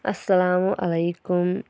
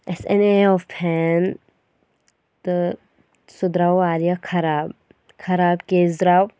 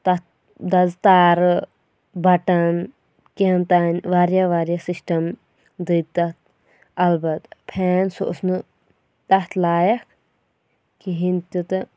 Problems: none marked